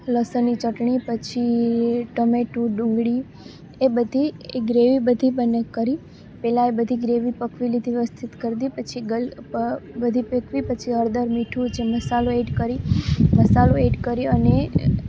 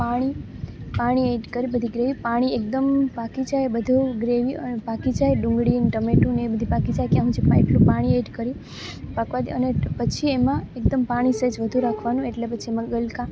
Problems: none marked